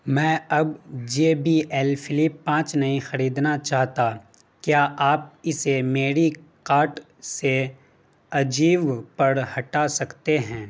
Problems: constant background noise